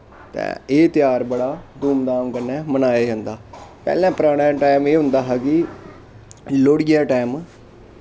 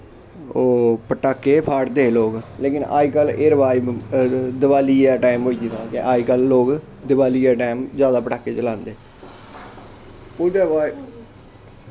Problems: constant background noise